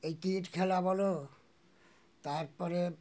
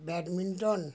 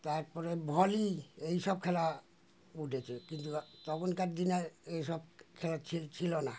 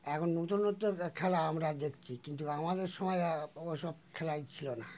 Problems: constant background noise